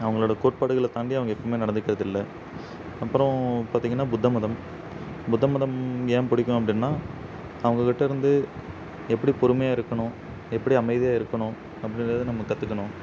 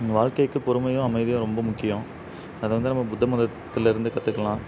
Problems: constant background noise